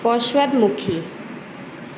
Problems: constant background noise